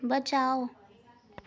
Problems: none marked